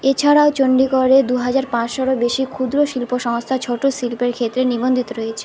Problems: none marked